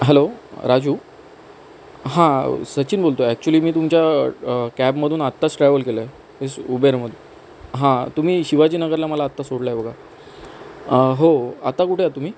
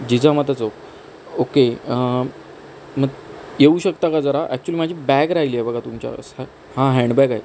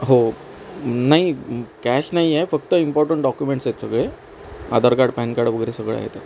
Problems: constant background noise